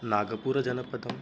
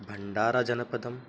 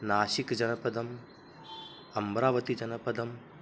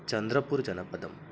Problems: background sounds at intervals